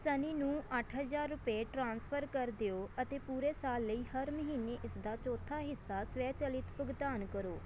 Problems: background sounds at intervals